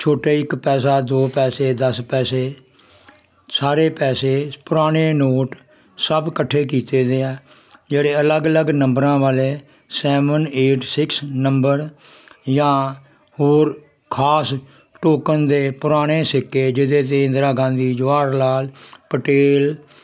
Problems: constant background noise